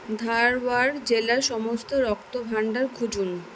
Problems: constant background noise